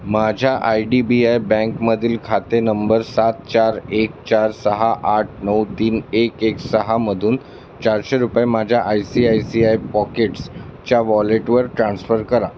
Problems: constant background noise